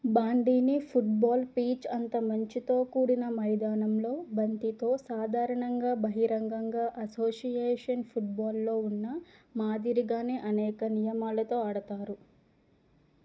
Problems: low volume